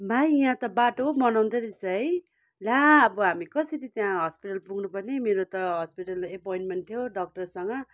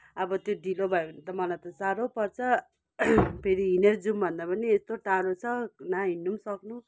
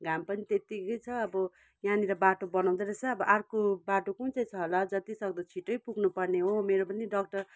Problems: none marked